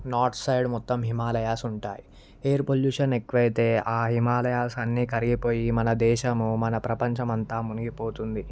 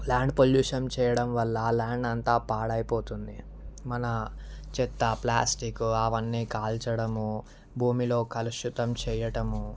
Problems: none marked